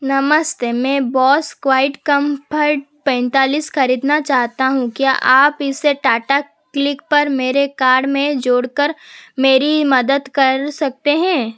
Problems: constant background noise